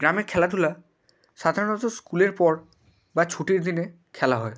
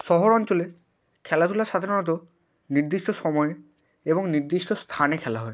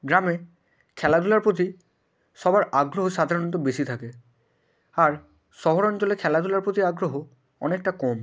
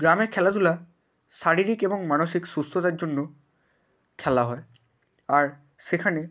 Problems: none marked